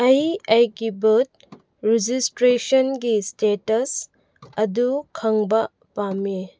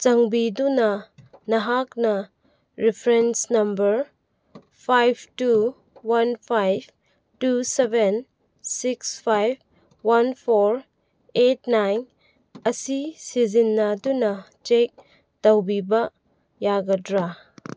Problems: none marked